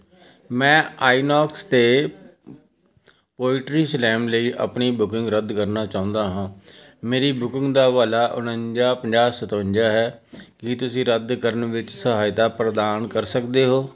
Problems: continuous background conversations